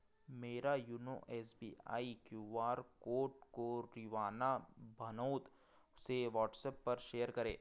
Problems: background sounds at intervals